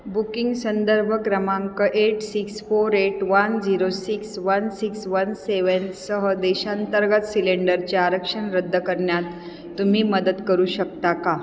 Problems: constant background noise